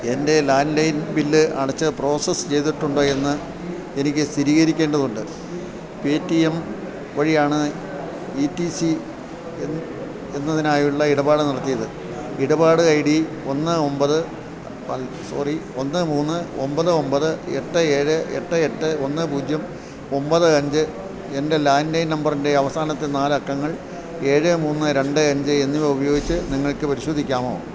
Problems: constant background noise, low volume